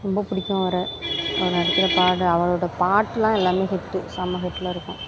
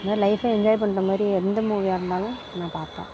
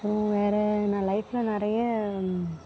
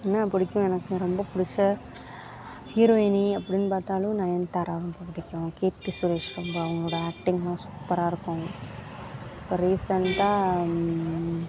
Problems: background sounds at intervals